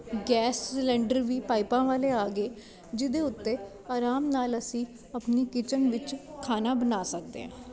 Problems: constant background noise, background conversations at intervals